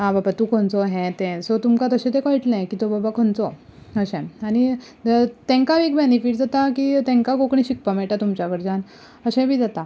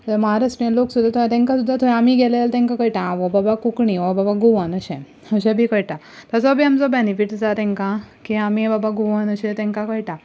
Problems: background sounds at intervals